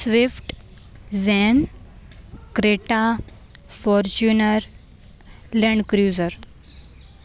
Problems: constant background noise